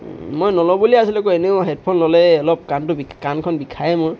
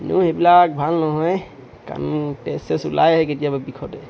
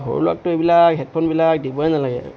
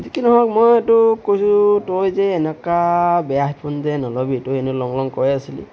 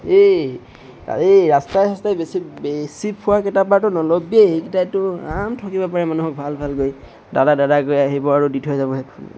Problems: none marked